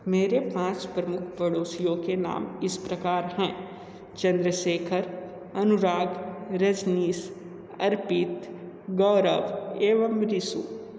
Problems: constant background noise